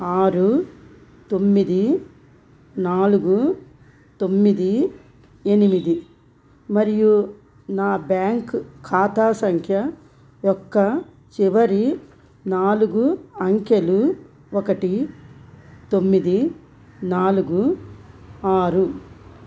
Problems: constant background noise